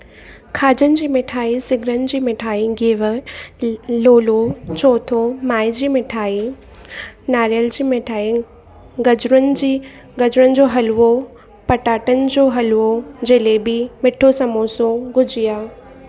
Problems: constant background noise